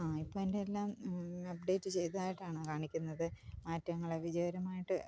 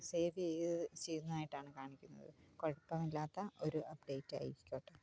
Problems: low volume